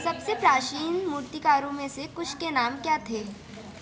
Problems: none marked